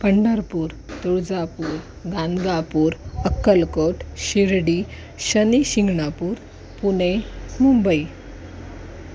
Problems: constant background noise